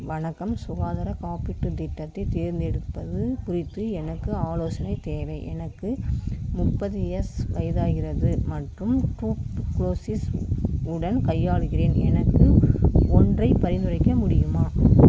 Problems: constant background noise